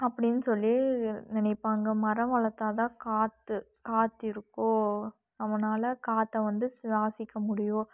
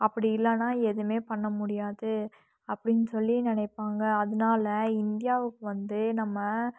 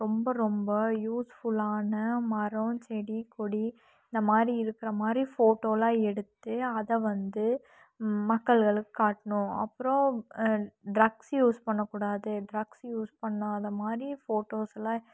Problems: none marked